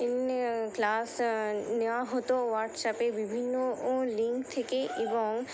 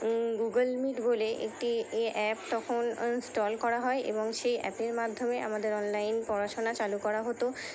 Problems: none marked